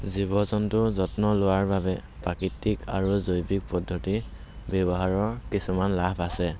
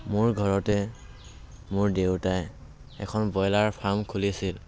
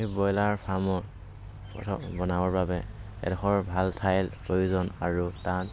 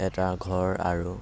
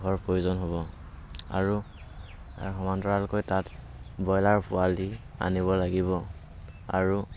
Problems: constant background noise